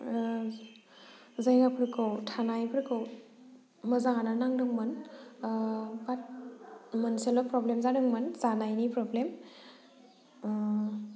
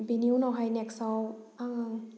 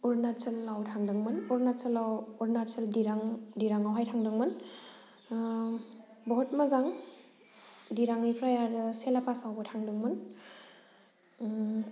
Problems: low volume